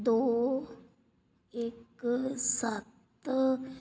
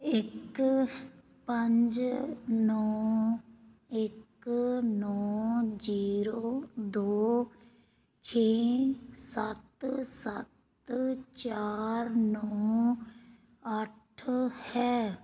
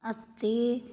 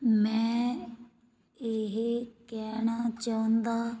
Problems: none marked